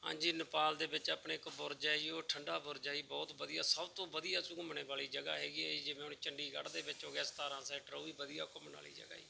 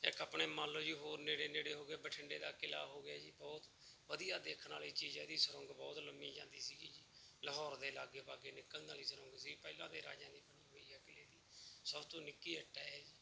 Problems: background sounds at intervals